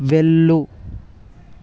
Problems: none marked